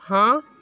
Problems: background sounds at intervals